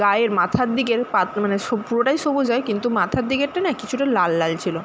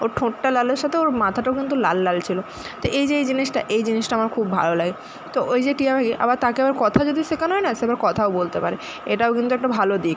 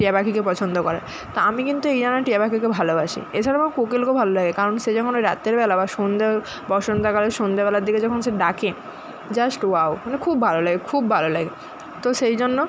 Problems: constant background noise